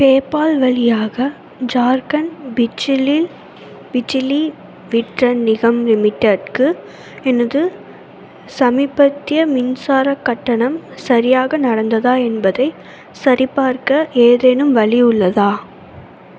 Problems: constant background noise